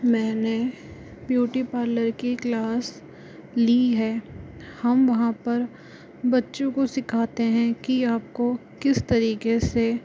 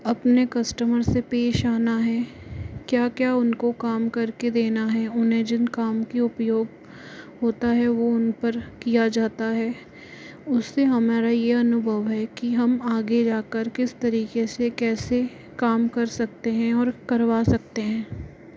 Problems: constant background noise